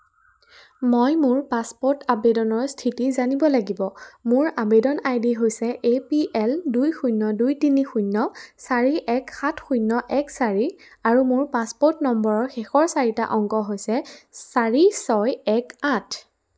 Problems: background sounds at intervals